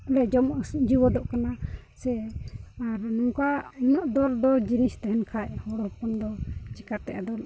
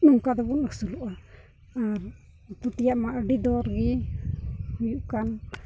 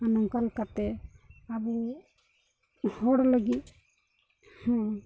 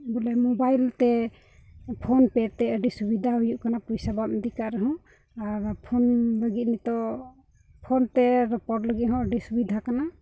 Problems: none marked